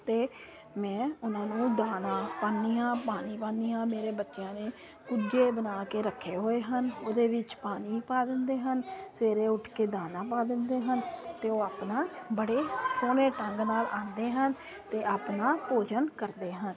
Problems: constant background noise